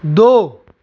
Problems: none marked